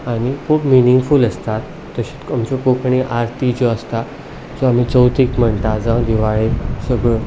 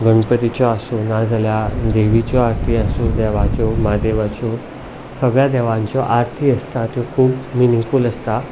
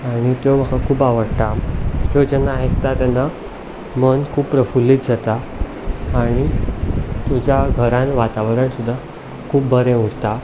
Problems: none marked